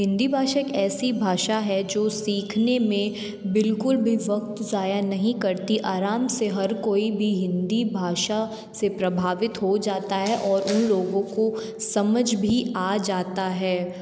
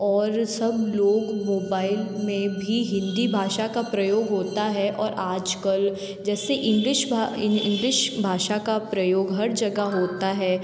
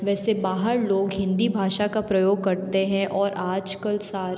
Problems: background sounds at intervals